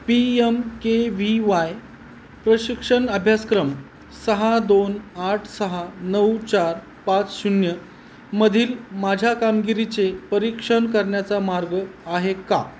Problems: none marked